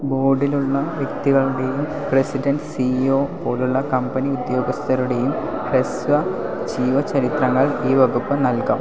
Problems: constant background noise